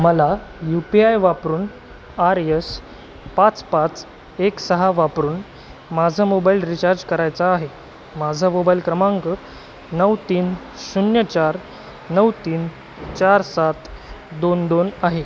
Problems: constant background noise, background conversations at intervals